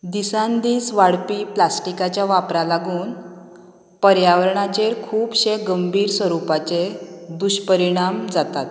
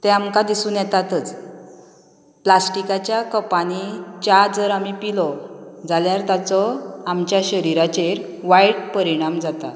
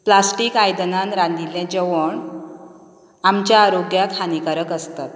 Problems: background sounds at intervals